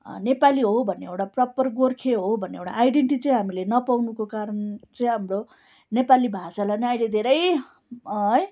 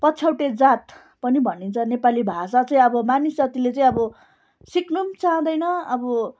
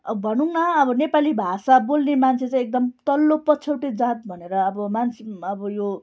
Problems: constant background noise